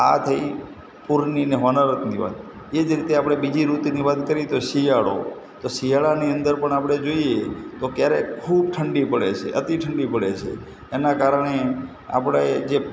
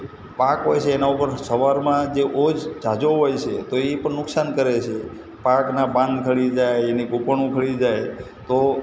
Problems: constant background noise